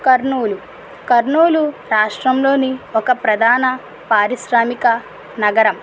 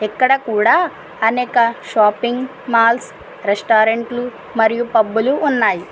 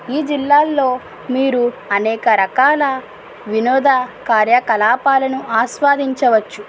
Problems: constant background noise